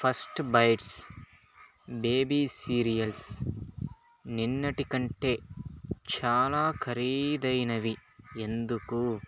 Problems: constant background noise